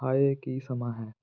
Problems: none marked